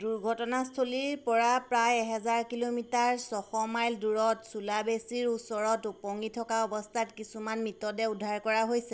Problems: constant background noise